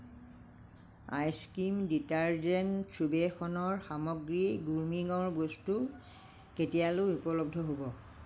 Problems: low volume